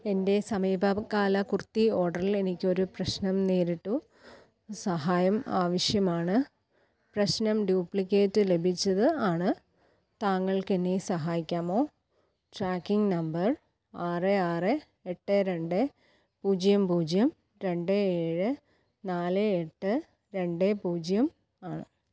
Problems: low volume